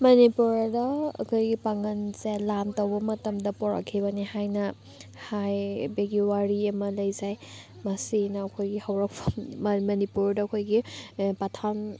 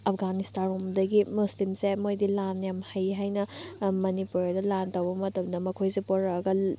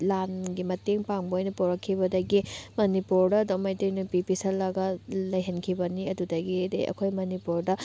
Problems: none marked